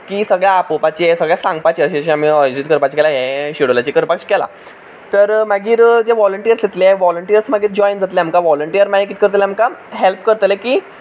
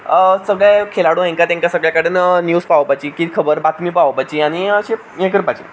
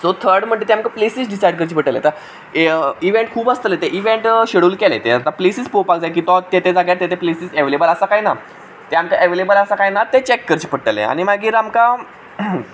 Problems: background sounds at intervals